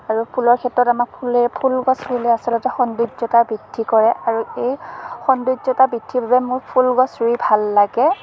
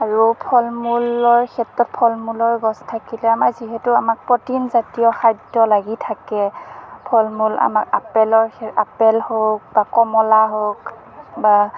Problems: constant background noise